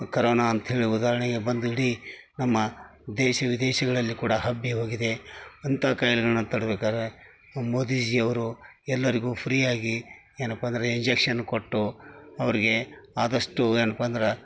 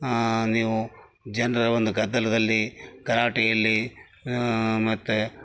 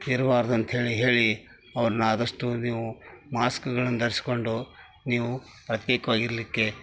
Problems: background sounds at intervals